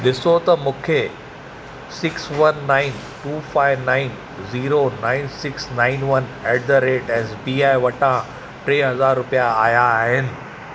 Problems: constant background noise